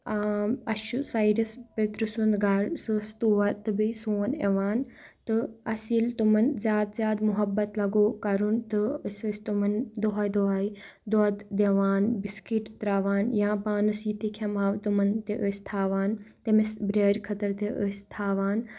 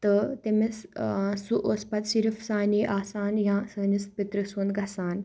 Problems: none marked